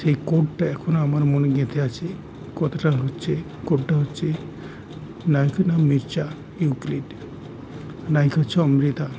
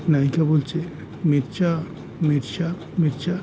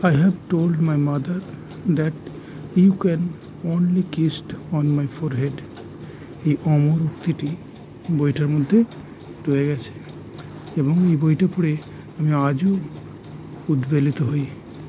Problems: constant background noise